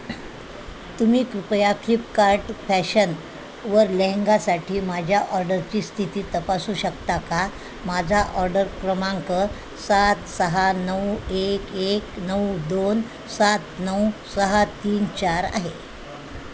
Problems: constant background noise, continuous background conversations